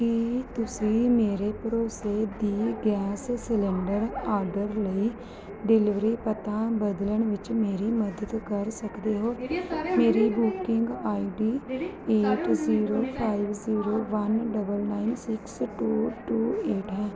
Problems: background sounds at intervals, continuous background conversations